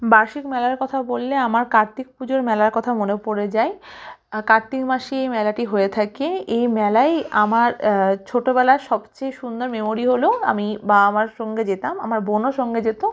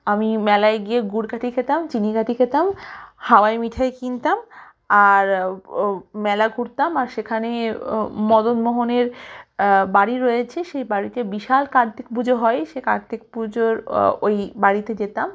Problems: background sounds at intervals